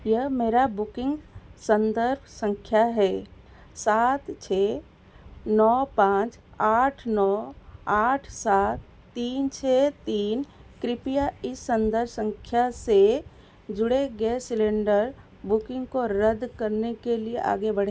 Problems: constant background noise